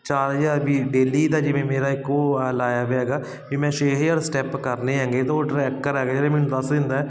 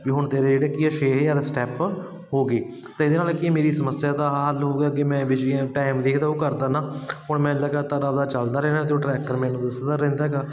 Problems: constant background noise